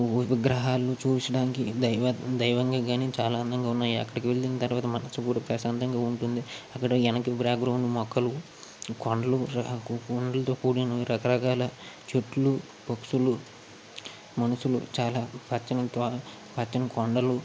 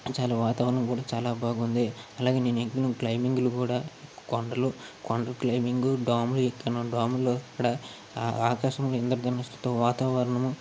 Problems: constant background noise